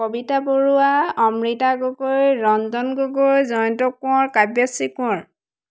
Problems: constant background noise